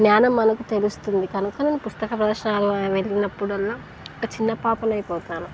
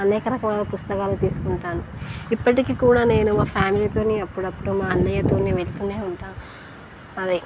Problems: background sounds at intervals, background conversations at intervals